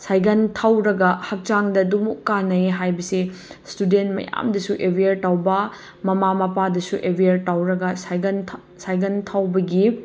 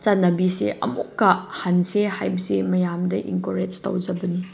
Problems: none marked